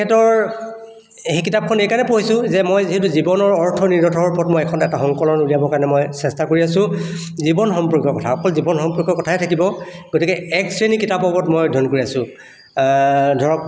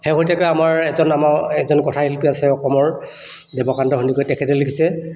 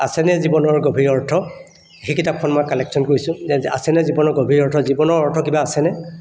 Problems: none marked